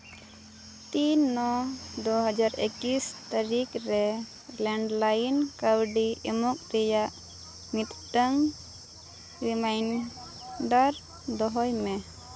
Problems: background sounds at intervals